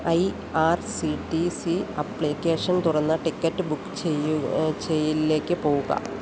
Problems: constant background noise